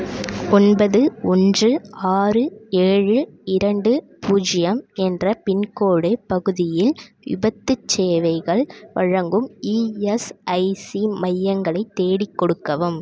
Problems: none marked